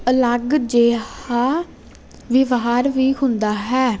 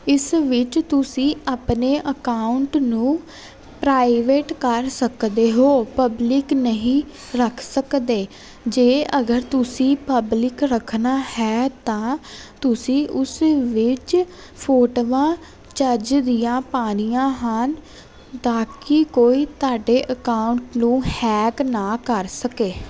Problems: constant background noise